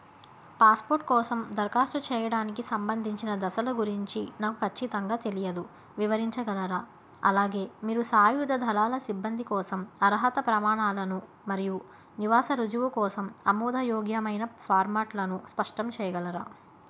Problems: constant background noise